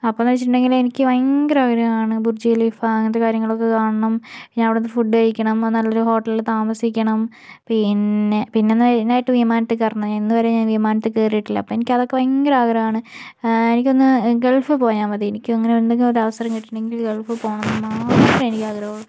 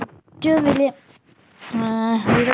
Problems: background sounds at intervals, low volume